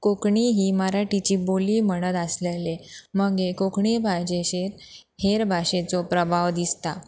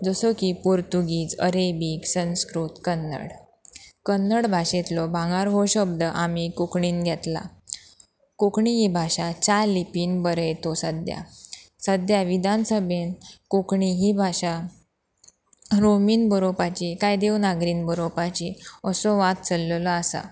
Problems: background sounds at intervals